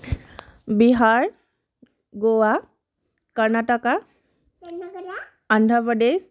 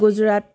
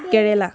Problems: background conversations at intervals